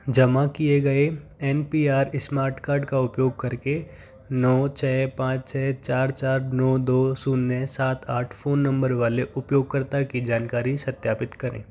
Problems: constant background noise